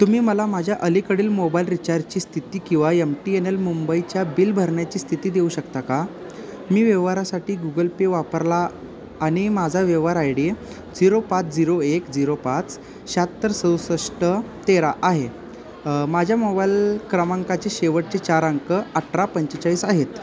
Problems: none marked